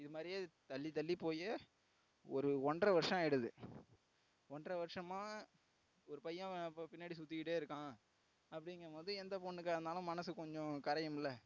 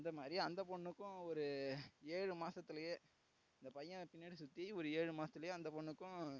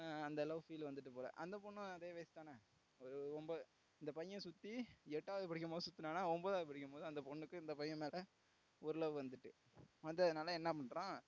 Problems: background sounds at intervals, low volume